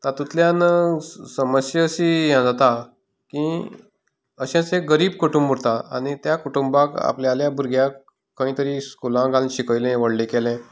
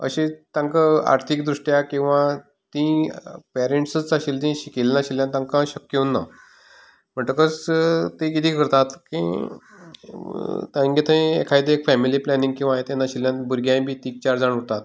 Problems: background conversations at intervals